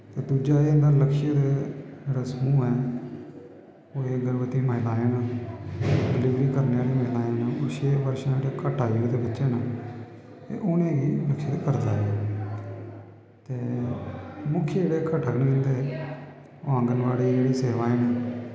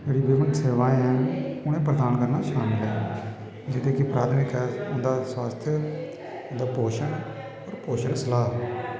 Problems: constant background noise